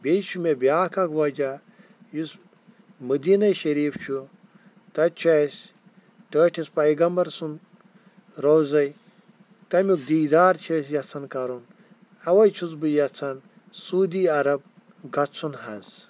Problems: none marked